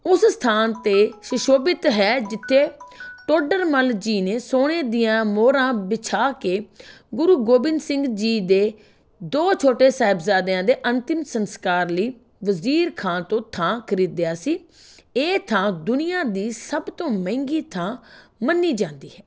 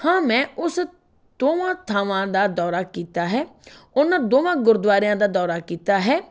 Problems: background sounds at intervals